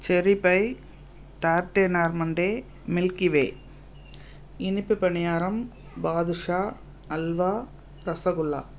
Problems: constant background noise